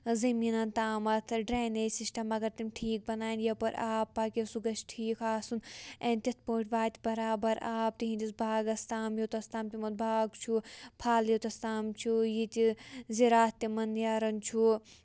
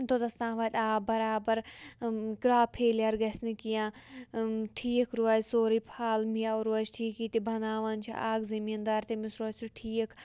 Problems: none marked